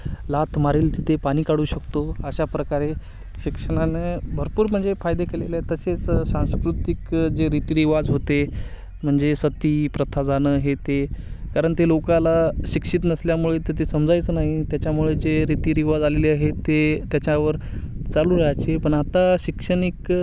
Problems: constant background noise